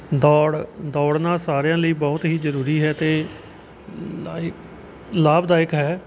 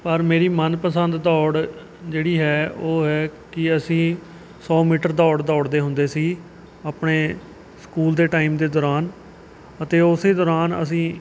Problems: none marked